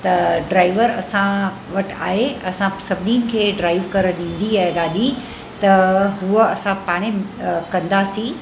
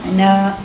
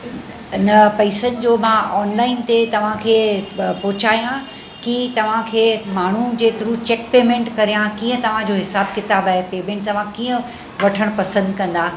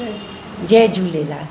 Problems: constant background noise, background conversations at intervals, echo